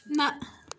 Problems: none marked